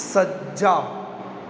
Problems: none marked